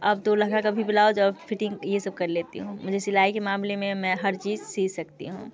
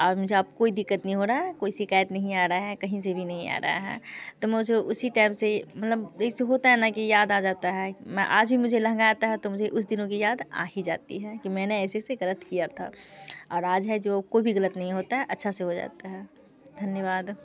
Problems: constant background noise